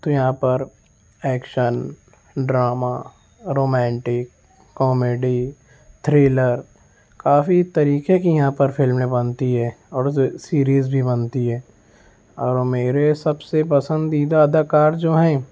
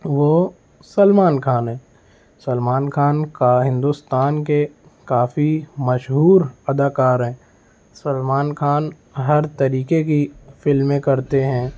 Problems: background sounds at intervals